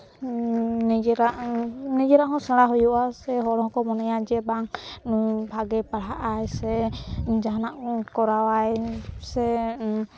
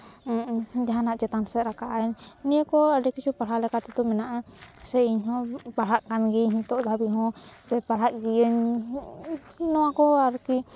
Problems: background sounds at intervals